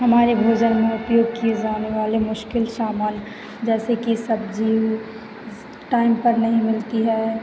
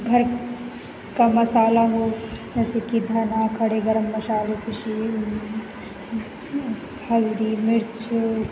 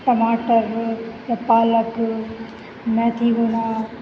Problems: constant background noise